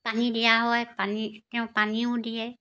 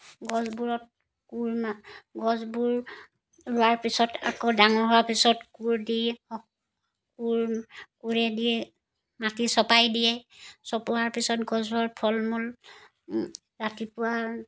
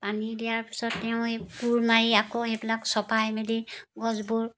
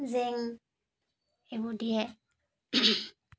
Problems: background sounds at intervals